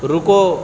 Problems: constant background noise